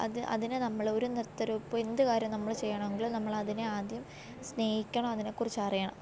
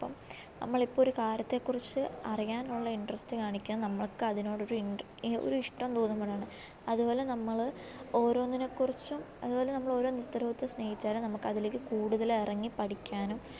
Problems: none marked